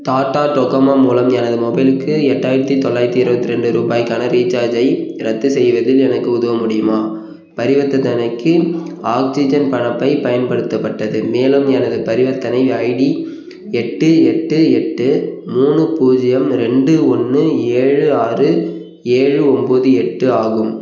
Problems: background sounds at intervals